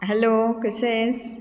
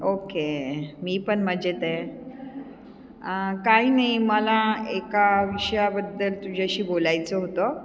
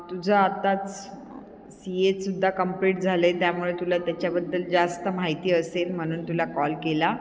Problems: constant background noise, echo